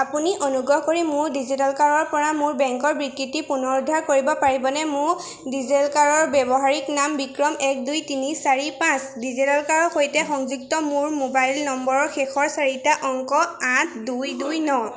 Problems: background sounds at intervals